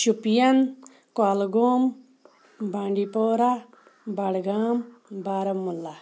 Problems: none marked